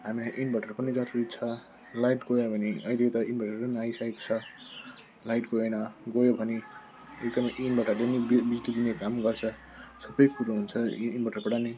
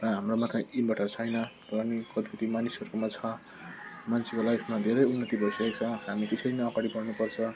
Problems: constant background noise